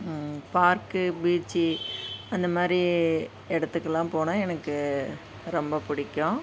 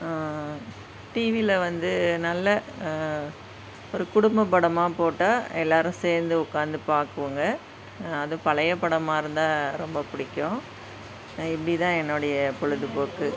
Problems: constant background noise, background conversations at intervals